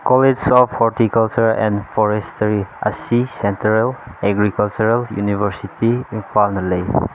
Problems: constant background noise